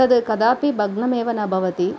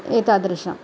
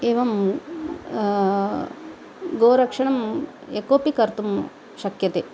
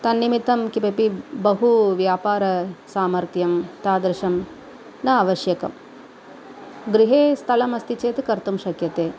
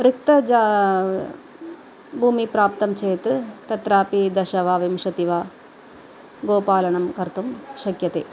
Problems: none marked